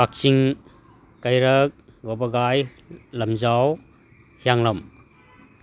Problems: none marked